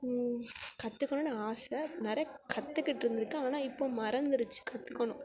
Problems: background sounds at intervals, background conversations at intervals